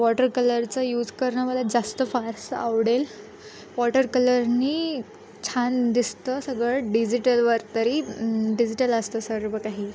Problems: none marked